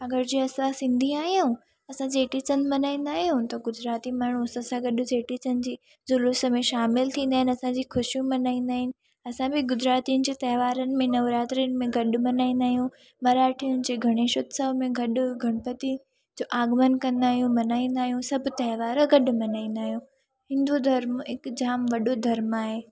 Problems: none marked